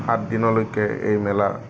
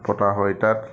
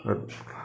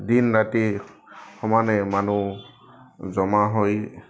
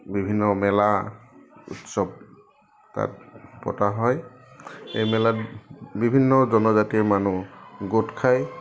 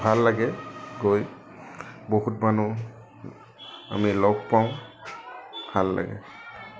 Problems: none marked